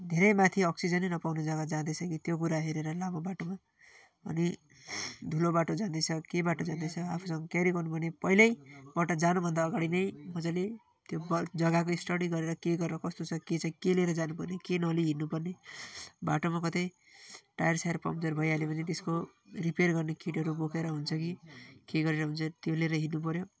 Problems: continuous background conversations